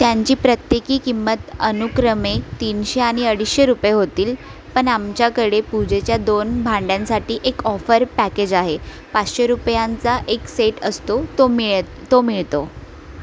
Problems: constant background noise, background conversations at intervals